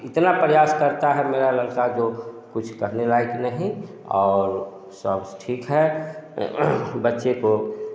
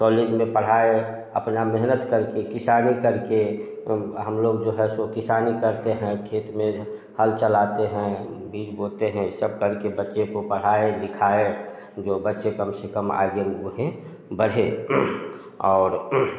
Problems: background sounds at intervals, continuous background conversations, echo